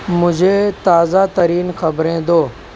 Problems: none marked